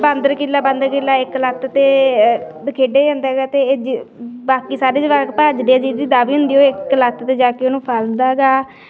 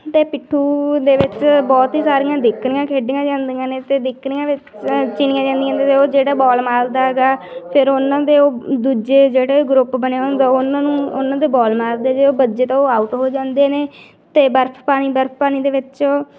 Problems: continuous background conversations